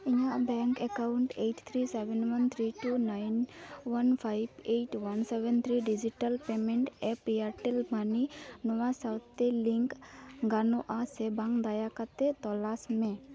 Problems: background sounds at intervals, continuous background conversations